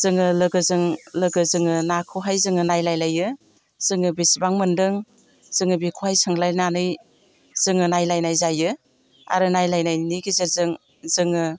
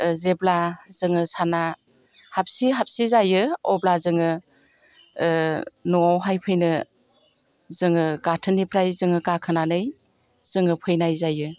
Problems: constant background noise